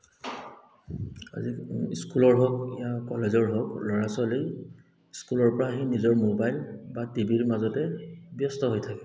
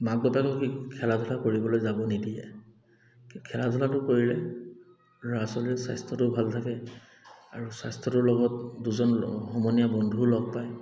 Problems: none marked